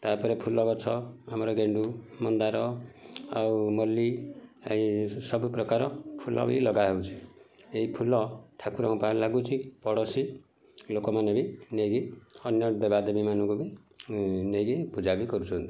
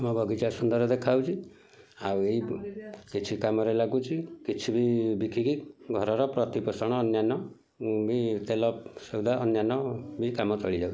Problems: background sounds at intervals, background conversations at intervals